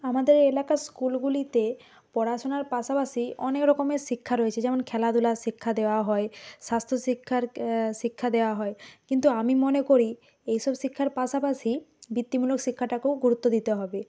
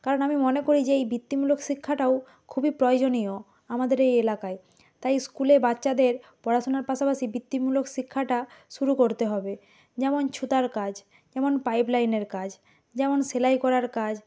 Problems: background sounds at intervals